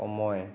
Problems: constant background noise